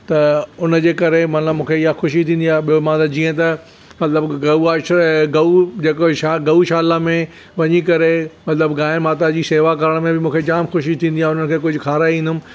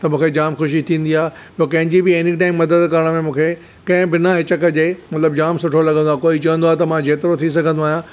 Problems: none marked